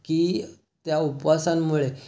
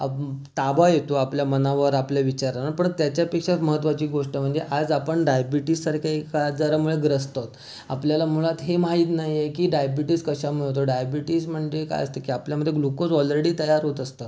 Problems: constant background noise